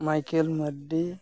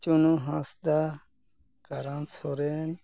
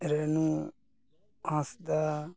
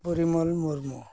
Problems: none marked